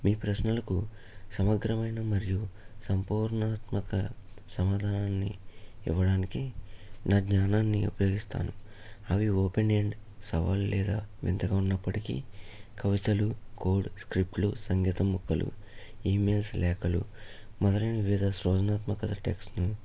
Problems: low volume